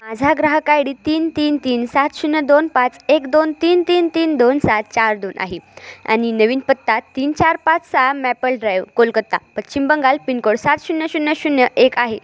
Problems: constant background noise, background conversations at intervals